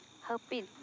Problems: low volume